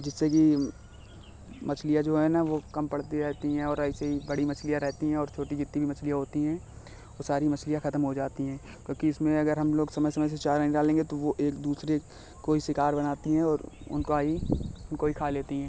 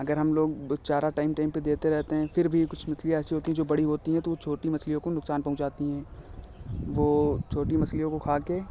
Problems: constant background noise